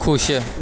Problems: none marked